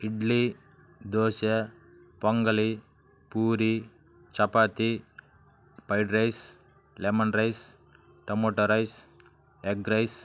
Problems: none marked